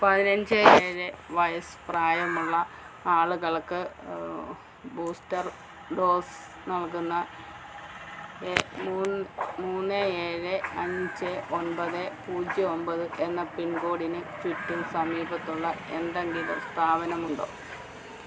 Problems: low volume